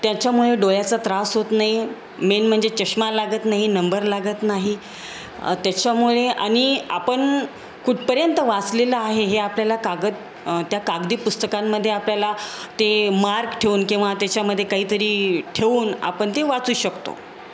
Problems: constant background noise